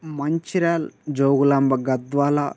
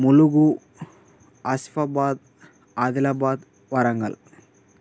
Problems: constant background noise